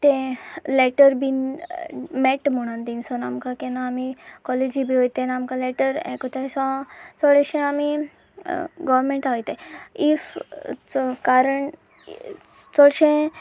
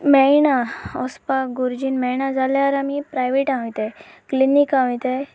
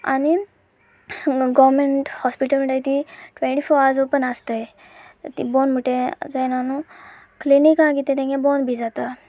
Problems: constant background noise, background conversations at intervals